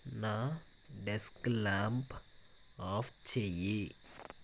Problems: constant background noise